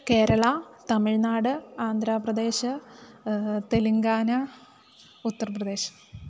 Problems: constant background noise